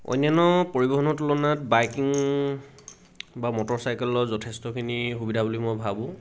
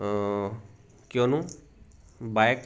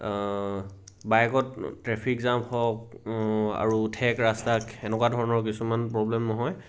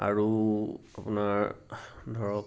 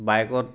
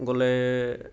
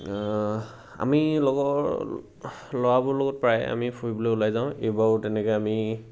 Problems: none marked